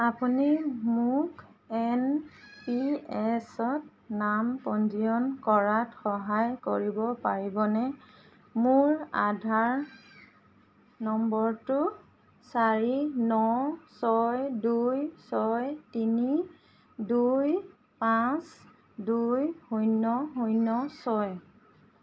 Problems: constant background noise, background conversations at intervals